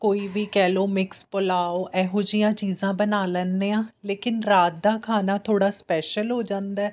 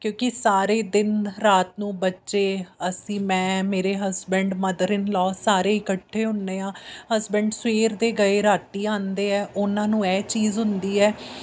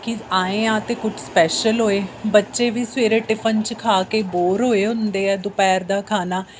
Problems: background sounds at intervals